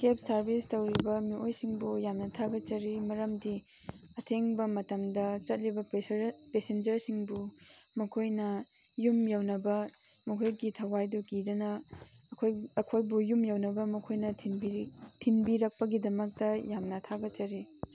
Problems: constant background noise, background conversations at intervals